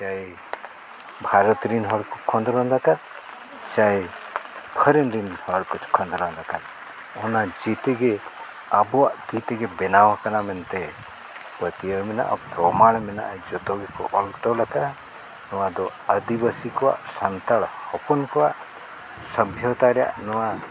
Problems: constant background noise